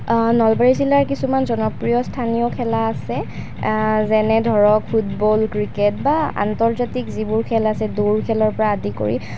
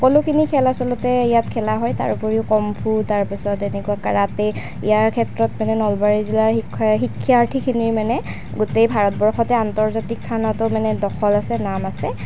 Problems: constant background noise